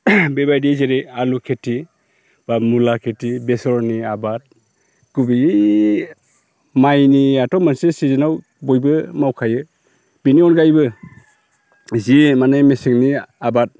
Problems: constant background noise